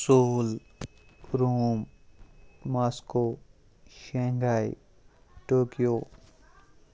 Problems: none marked